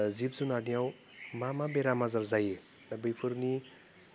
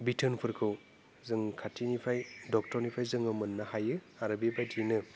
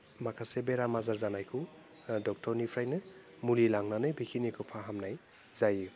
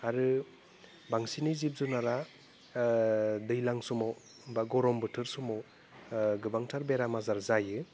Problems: constant background noise